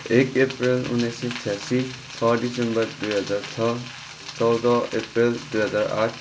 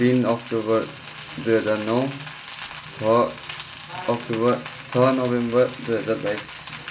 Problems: background sounds at intervals